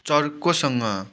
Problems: background sounds at intervals